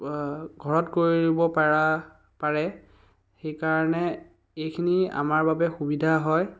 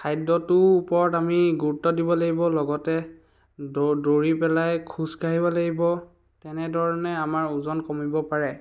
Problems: background sounds at intervals